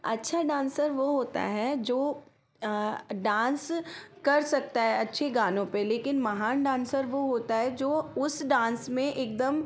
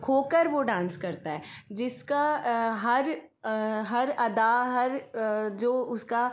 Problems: background sounds at intervals